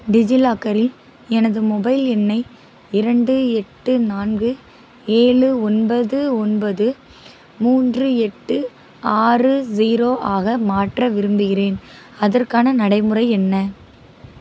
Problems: constant background noise